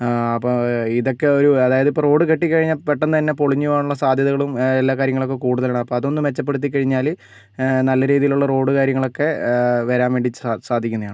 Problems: none marked